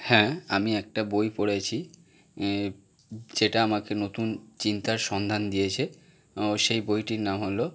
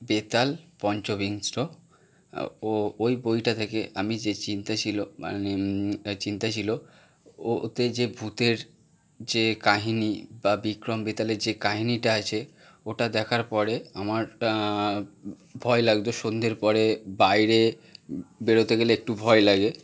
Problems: constant background noise